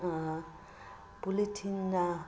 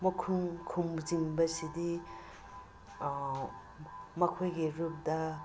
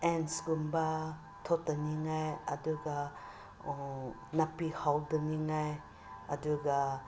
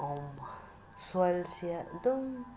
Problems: constant background noise